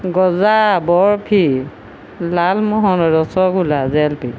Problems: none marked